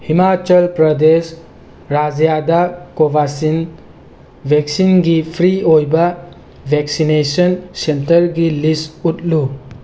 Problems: none marked